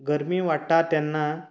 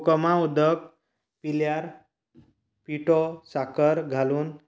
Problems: none marked